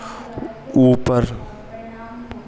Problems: constant background noise, echo